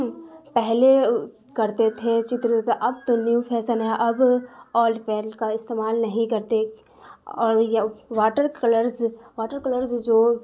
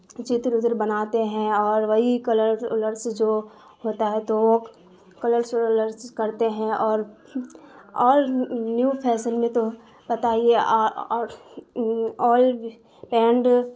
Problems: constant background noise